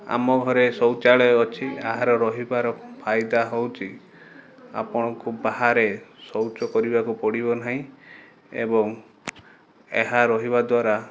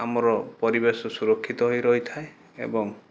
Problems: none marked